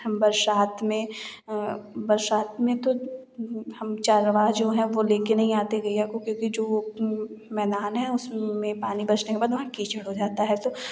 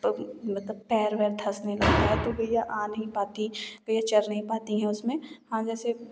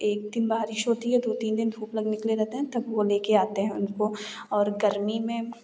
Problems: background sounds at intervals